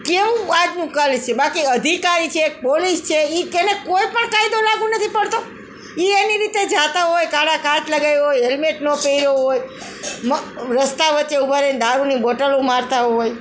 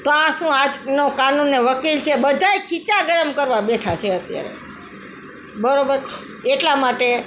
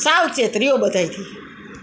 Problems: continuous background conversations